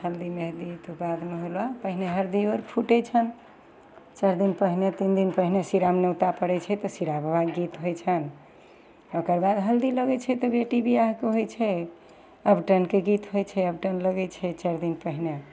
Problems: none marked